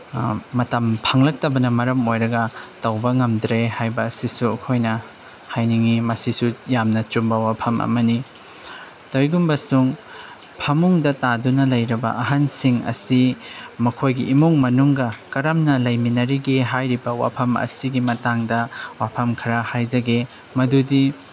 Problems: background sounds at intervals